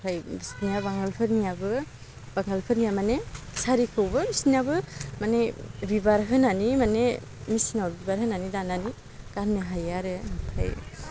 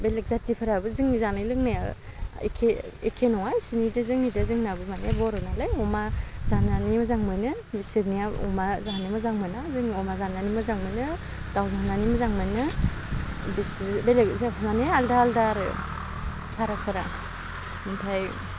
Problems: low volume